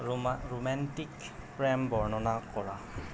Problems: constant background noise